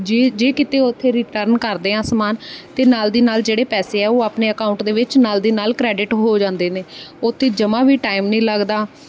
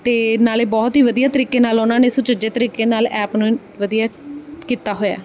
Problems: background sounds at intervals